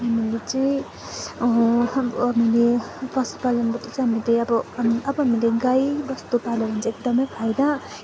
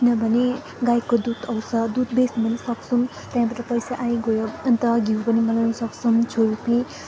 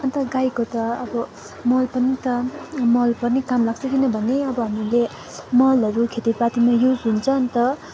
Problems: constant background noise, continuous background conversations